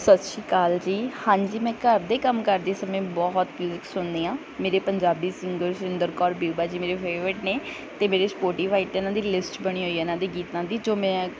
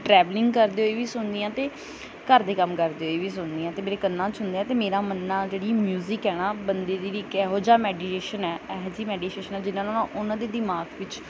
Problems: background sounds at intervals